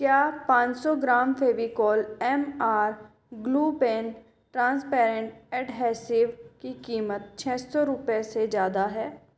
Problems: echo